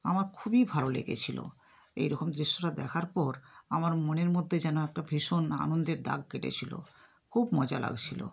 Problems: background sounds at intervals